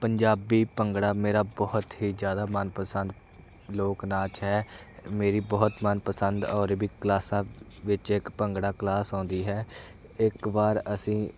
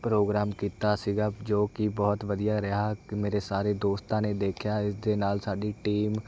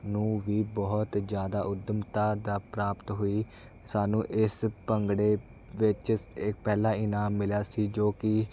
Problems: none marked